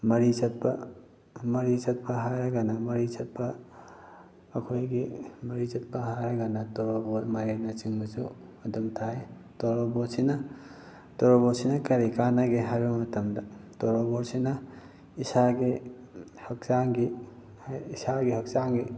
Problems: background sounds at intervals